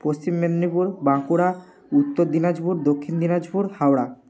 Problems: background sounds at intervals